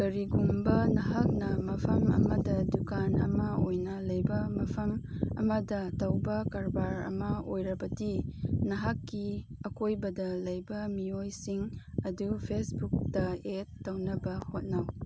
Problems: constant background noise